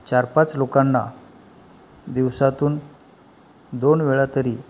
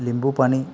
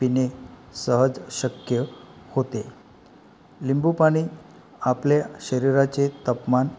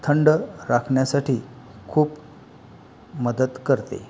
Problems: background sounds at intervals